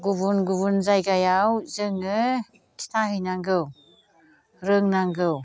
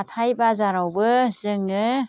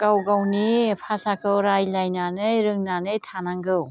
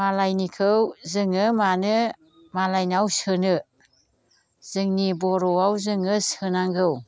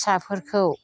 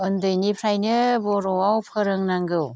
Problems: constant background noise